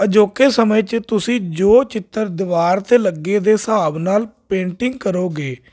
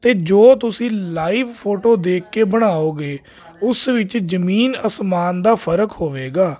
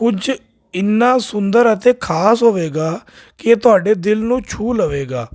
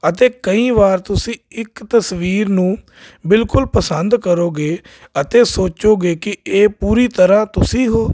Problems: none marked